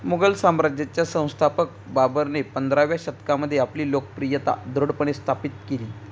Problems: none marked